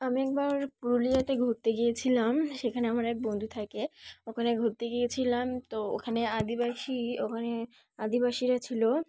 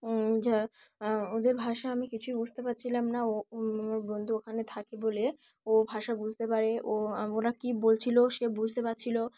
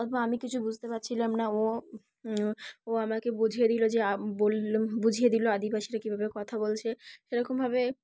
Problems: none marked